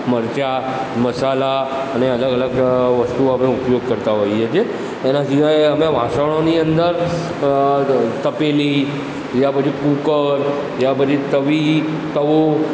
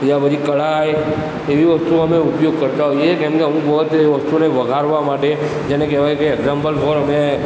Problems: constant background noise